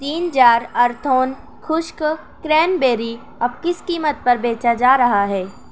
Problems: constant background noise